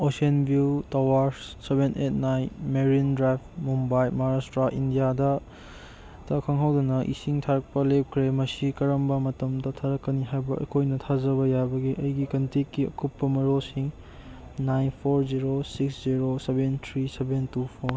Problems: background sounds at intervals